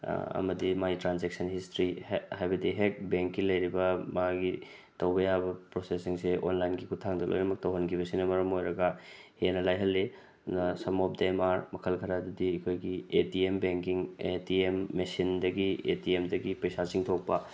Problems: none marked